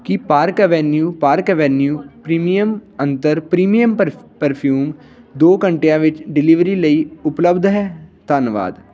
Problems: none marked